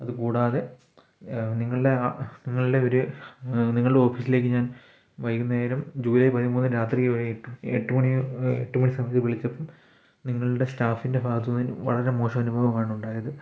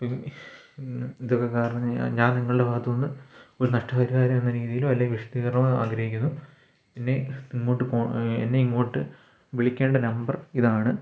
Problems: none marked